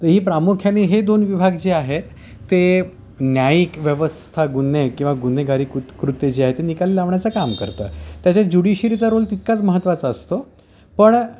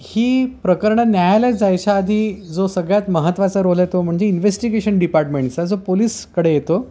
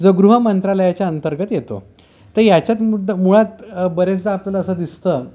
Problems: background sounds at intervals